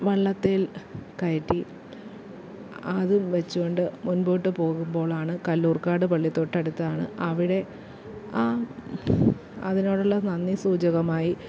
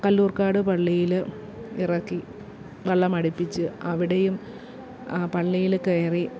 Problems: low volume